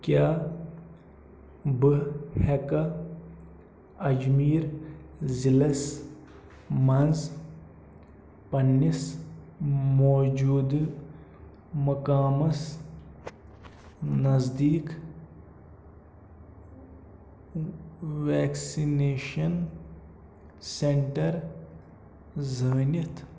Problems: none marked